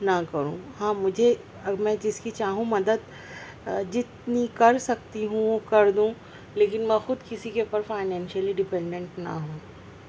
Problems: constant background noise, low volume